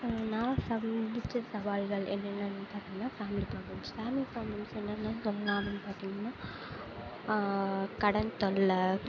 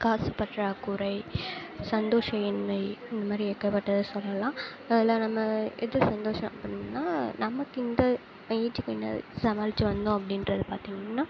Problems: constant background noise